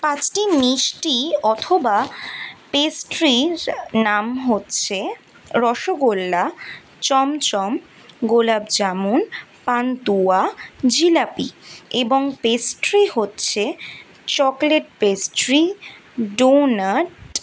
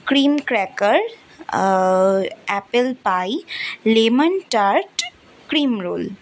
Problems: none marked